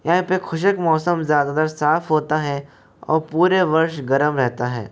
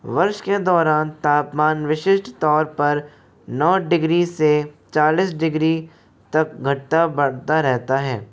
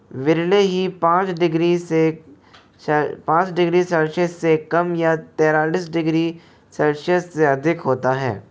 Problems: none marked